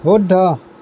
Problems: constant background noise